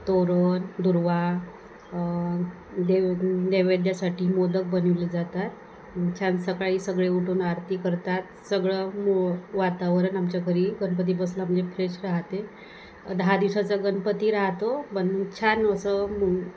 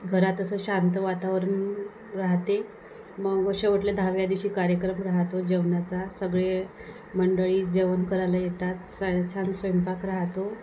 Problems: constant background noise